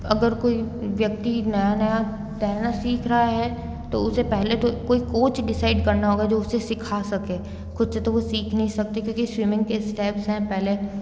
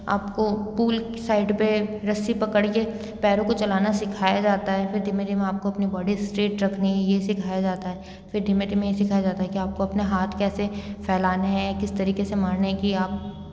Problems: background sounds at intervals